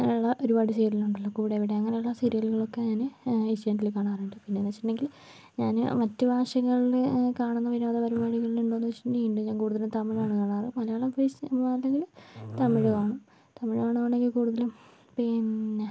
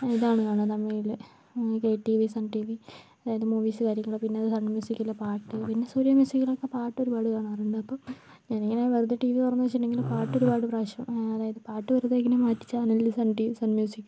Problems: background sounds at intervals, low volume